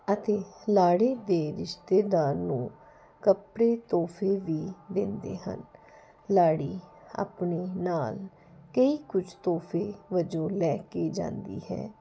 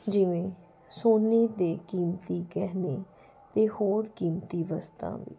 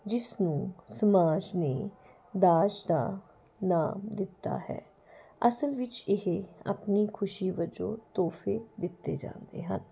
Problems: none marked